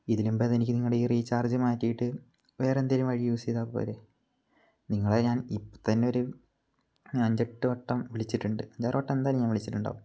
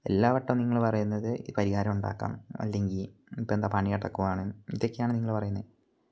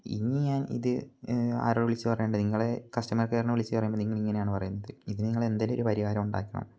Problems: low volume